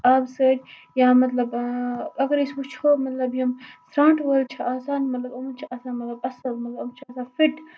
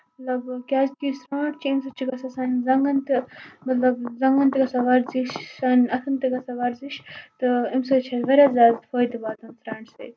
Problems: constant background noise